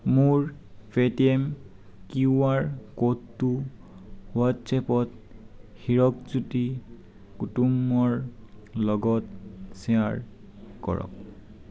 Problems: none marked